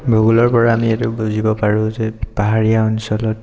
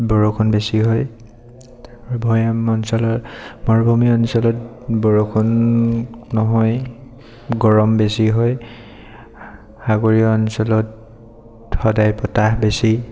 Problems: none marked